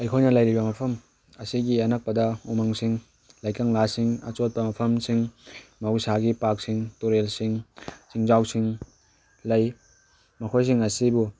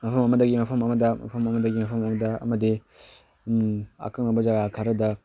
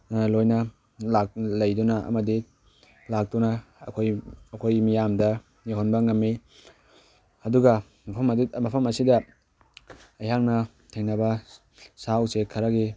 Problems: background sounds at intervals